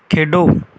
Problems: background sounds at intervals